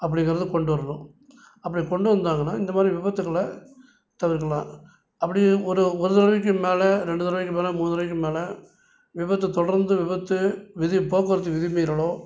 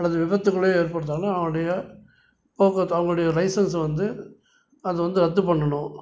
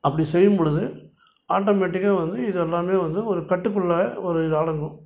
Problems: none marked